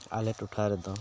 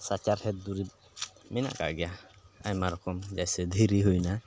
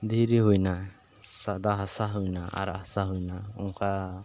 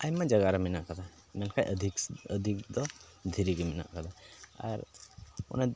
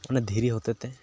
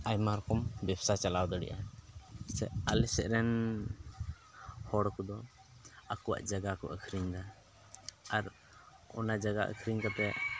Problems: constant background noise, background conversations at intervals